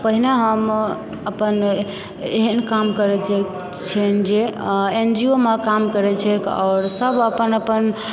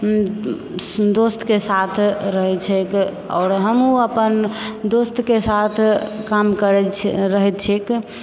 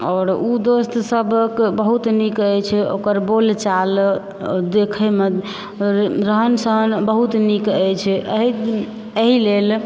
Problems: background sounds at intervals